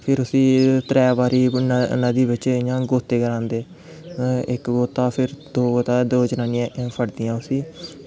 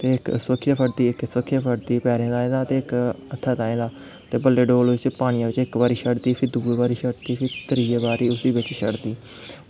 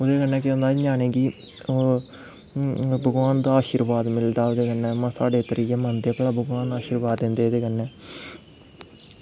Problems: constant background noise